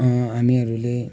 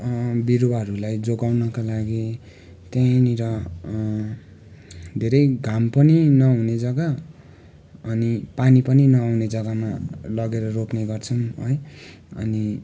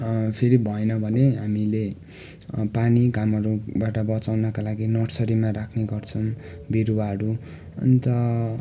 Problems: constant background noise